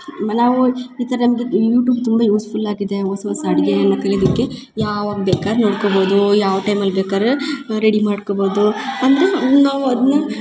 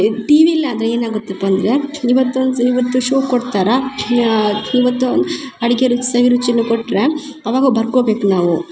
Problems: none marked